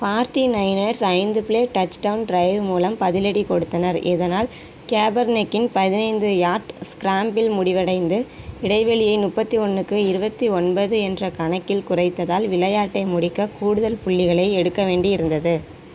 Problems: constant background noise